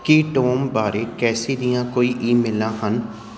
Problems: background sounds at intervals